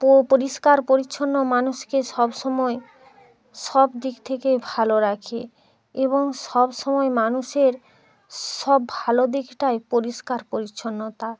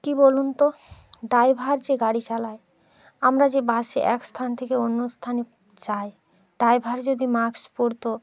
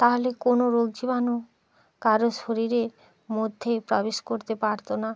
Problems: continuous background conversations